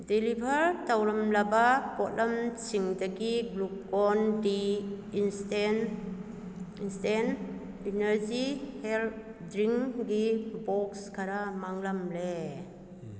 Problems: background conversations at intervals